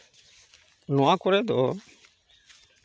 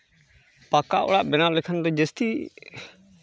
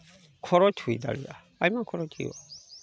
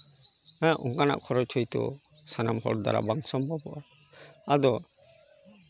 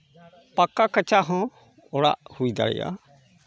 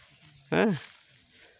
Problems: background sounds at intervals